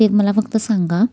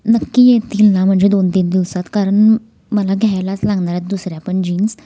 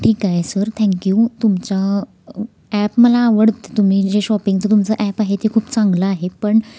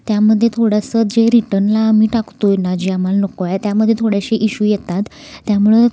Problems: none marked